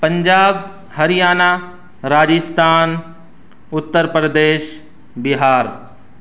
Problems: background sounds at intervals